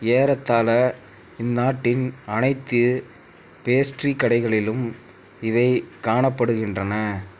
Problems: constant background noise